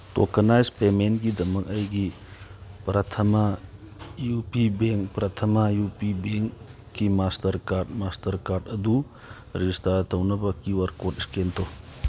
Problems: none marked